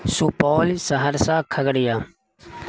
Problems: constant background noise